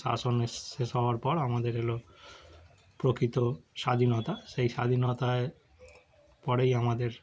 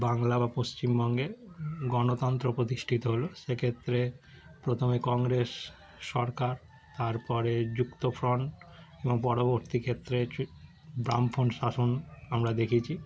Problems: background sounds at intervals